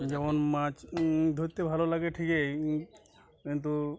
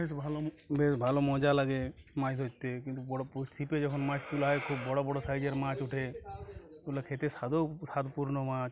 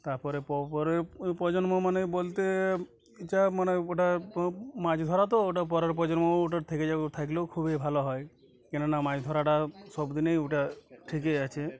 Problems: constant background noise, continuous background conversations